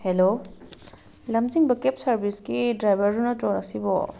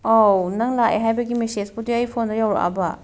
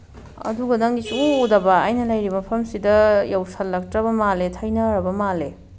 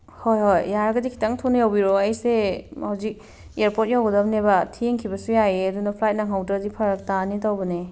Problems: background sounds at intervals